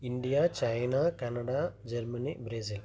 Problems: low volume